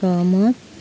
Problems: constant background noise